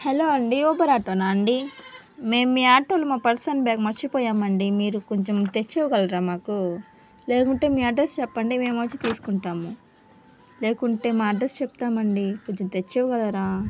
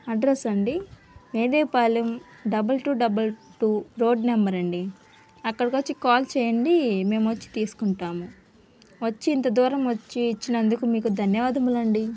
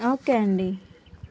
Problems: constant background noise